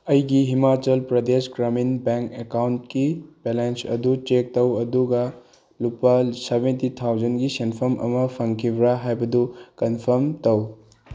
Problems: none marked